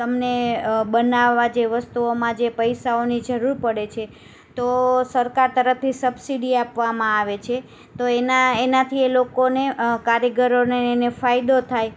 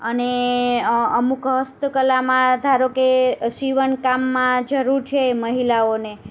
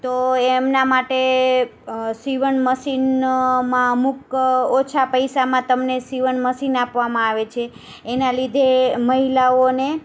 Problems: none marked